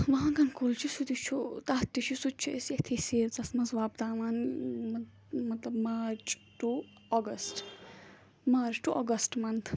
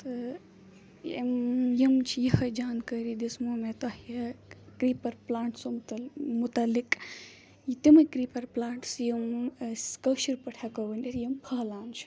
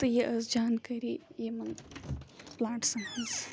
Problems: background sounds at intervals, background conversations at intervals